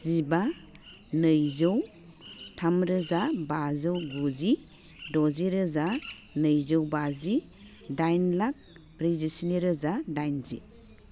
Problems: low volume